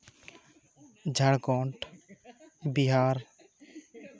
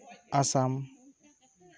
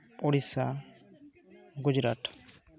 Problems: continuous background conversations